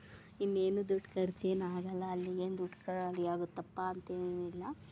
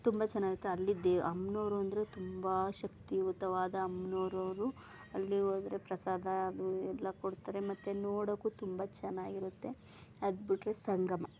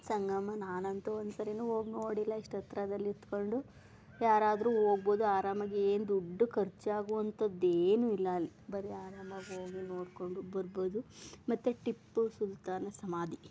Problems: background sounds at intervals